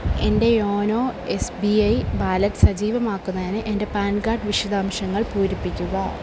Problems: constant background noise